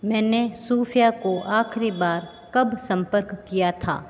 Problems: none marked